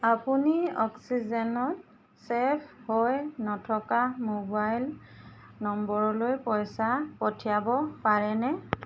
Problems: constant background noise